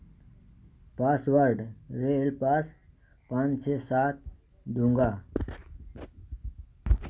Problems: background sounds at intervals